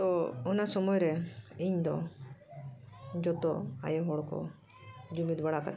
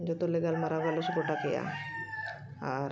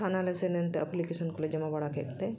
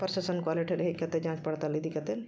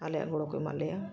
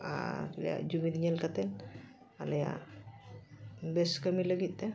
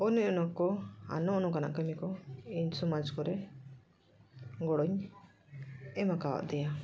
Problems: background conversations at intervals